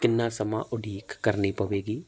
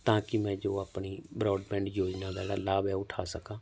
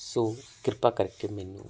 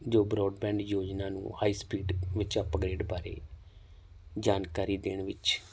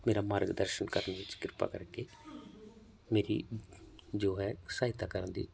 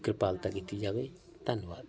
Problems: constant background noise